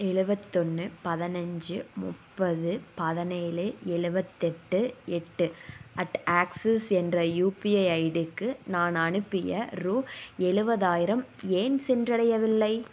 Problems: none marked